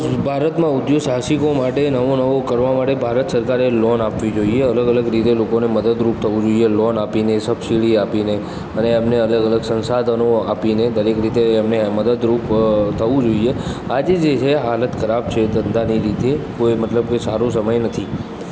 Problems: constant background noise, background conversations at intervals